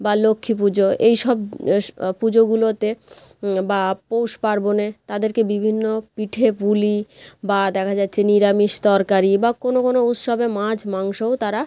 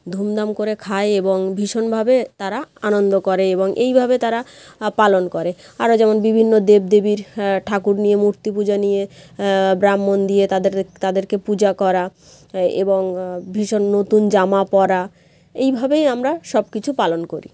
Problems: none marked